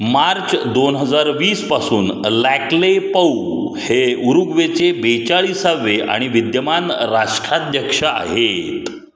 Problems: none marked